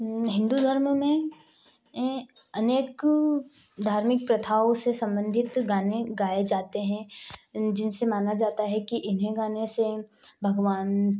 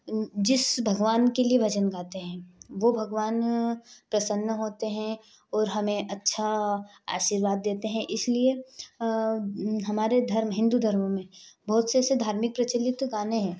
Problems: background sounds at intervals